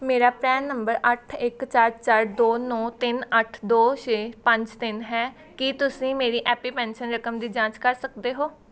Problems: background sounds at intervals